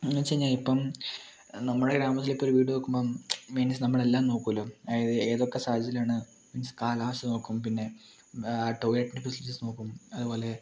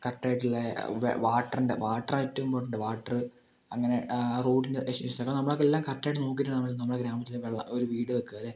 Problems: low volume